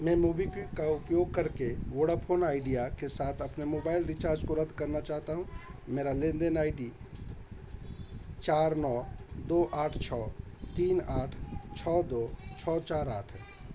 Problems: constant background noise